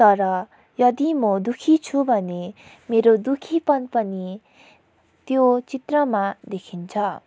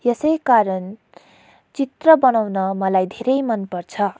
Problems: background sounds at intervals